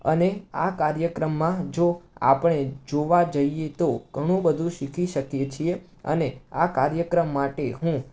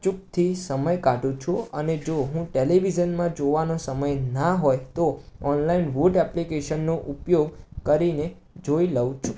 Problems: constant background noise